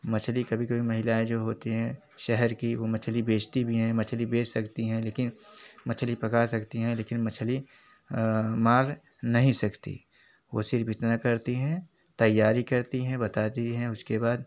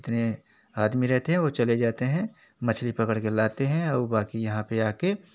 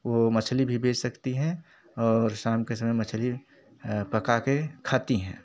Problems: none marked